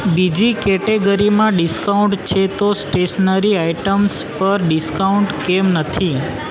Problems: constant background noise